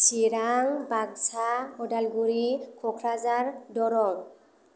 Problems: low volume